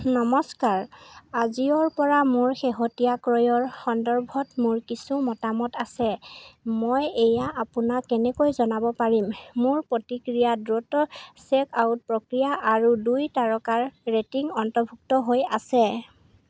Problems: constant background noise